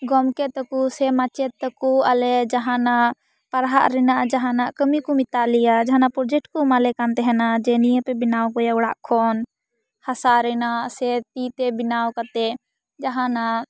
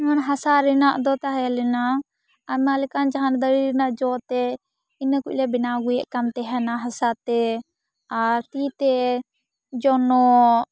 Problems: background sounds at intervals